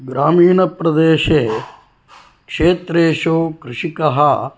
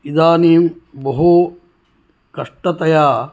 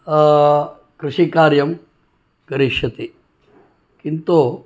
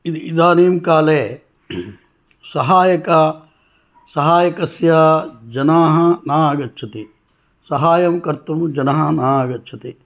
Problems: background sounds at intervals